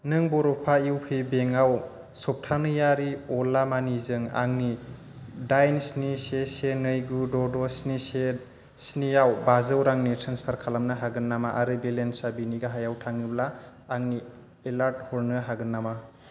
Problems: constant background noise